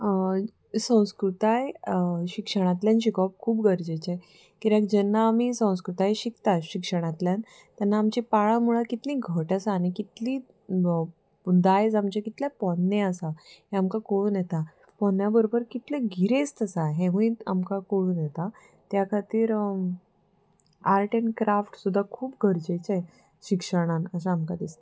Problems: background sounds at intervals